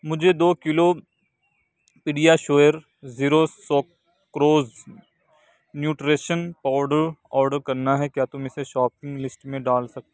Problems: constant background noise